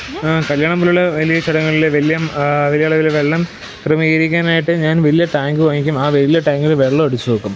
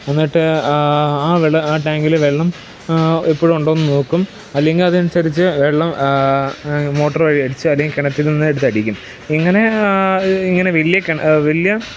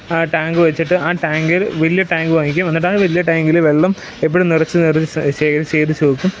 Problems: background sounds at intervals